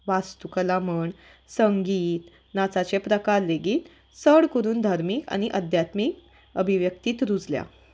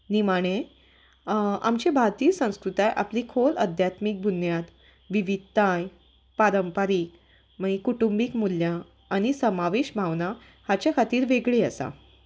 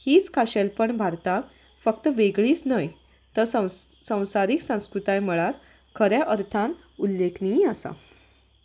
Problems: background sounds at intervals